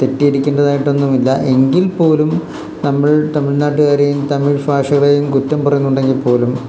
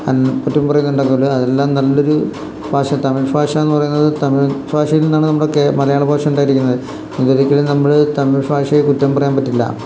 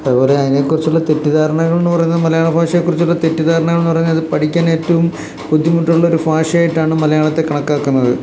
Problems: constant background noise